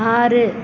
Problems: constant background noise